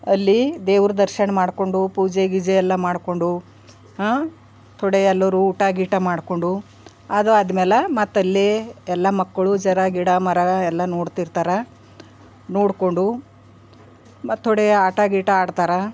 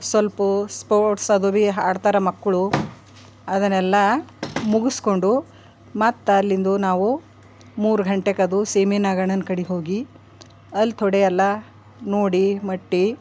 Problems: background sounds at intervals